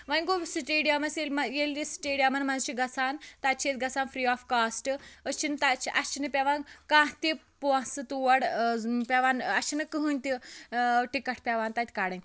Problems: background sounds at intervals, background conversations at intervals